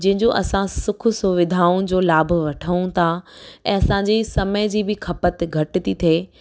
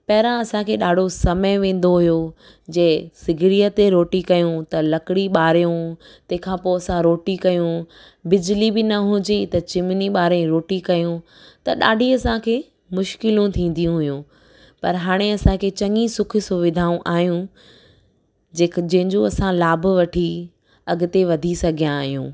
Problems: none marked